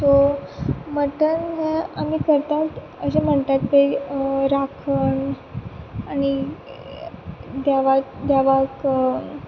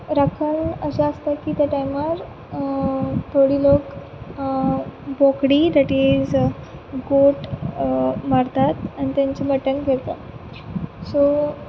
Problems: background sounds at intervals